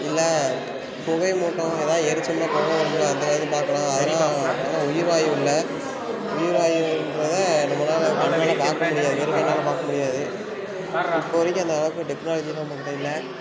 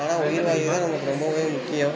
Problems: background sounds at intervals